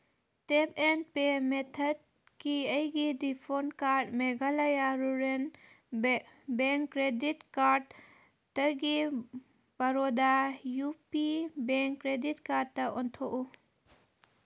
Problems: background sounds at intervals